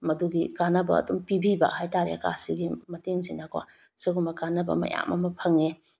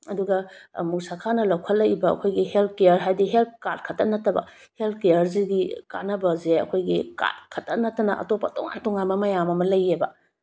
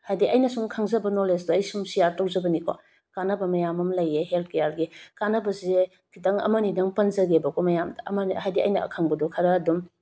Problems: none marked